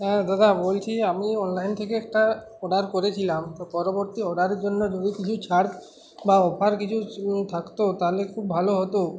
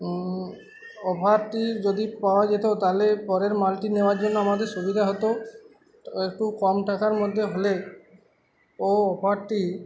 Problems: constant background noise